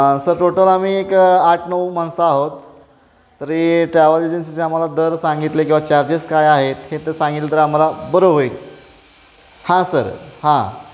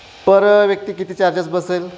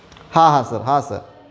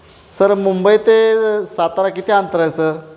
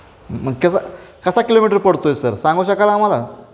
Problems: constant background noise, background conversations at intervals